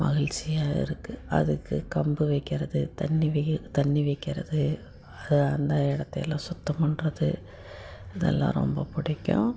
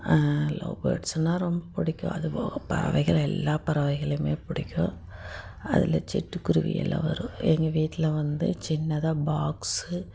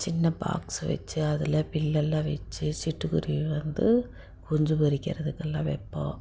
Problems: constant background noise